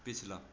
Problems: background sounds at intervals